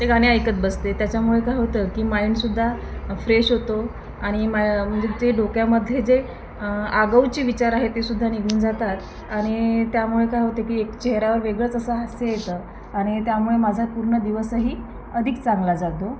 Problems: constant background noise, background conversations at intervals